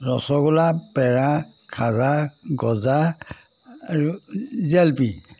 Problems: none marked